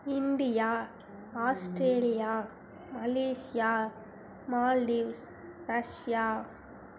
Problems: none marked